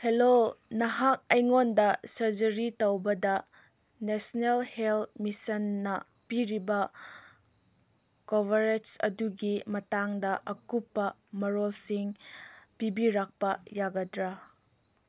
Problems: none marked